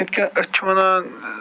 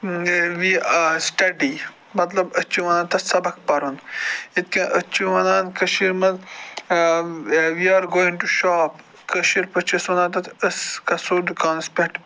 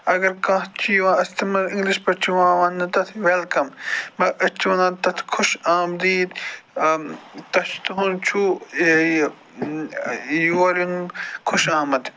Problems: constant background noise